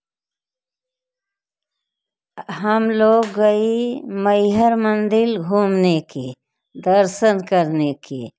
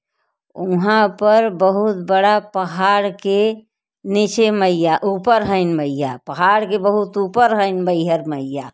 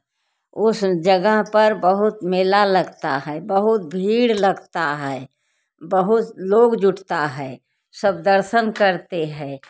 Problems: background sounds at intervals